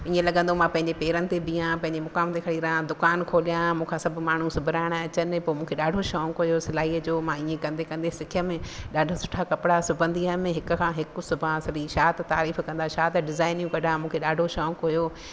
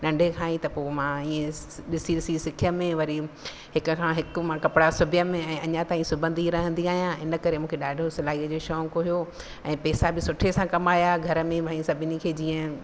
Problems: constant background noise